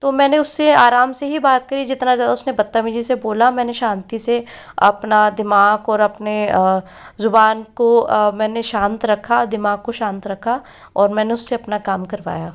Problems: none marked